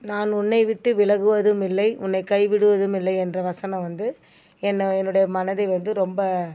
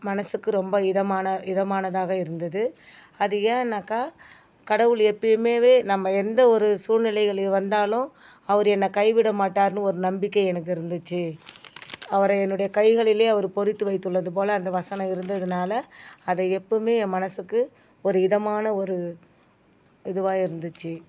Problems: none marked